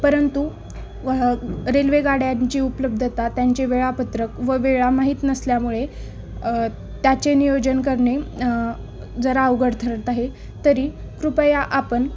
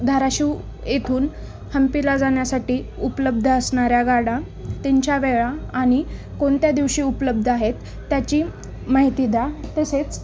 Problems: constant background noise, background conversations at intervals